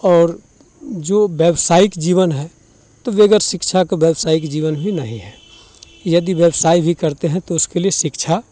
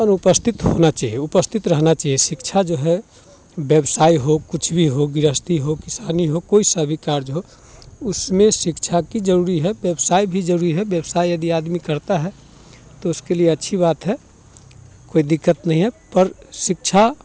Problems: none marked